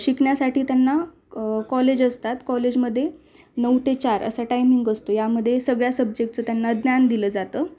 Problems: constant background noise